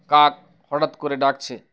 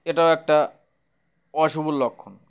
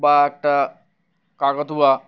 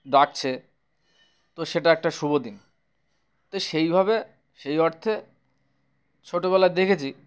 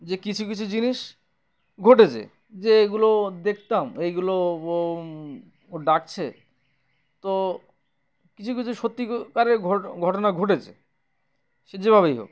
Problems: background sounds at intervals